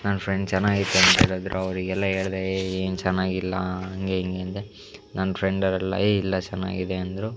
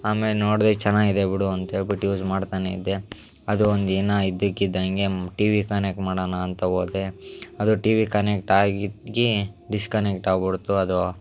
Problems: background sounds at intervals